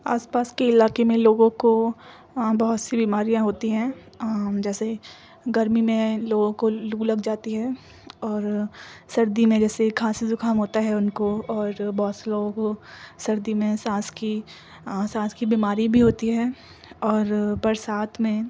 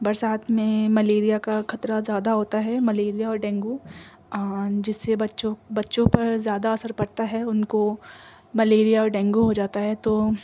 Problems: background sounds at intervals